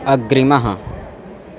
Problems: constant background noise